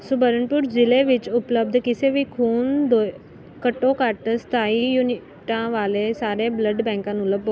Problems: none marked